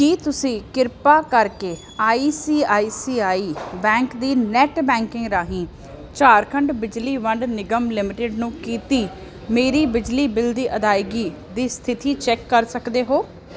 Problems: none marked